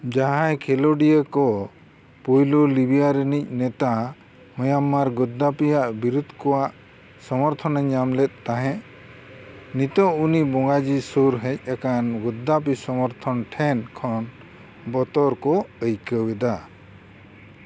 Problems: constant background noise